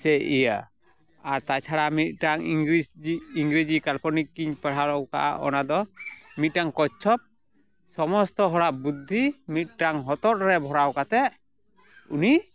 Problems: background sounds at intervals, background conversations at intervals